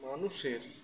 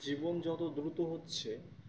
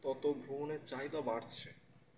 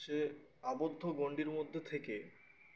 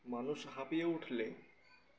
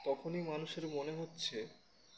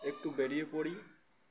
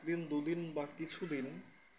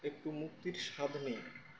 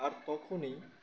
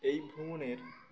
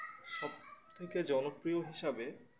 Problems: constant background noise, continuous background conversations